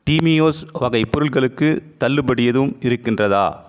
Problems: constant background noise, echo